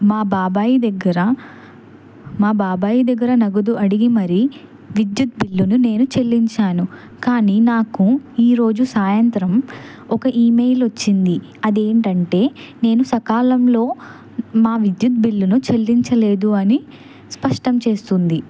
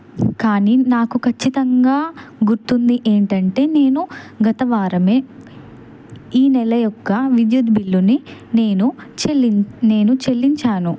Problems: background conversations at intervals